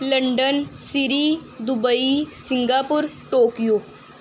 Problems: background sounds at intervals